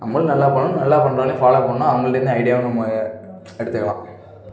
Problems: background sounds at intervals